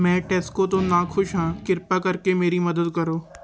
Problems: none marked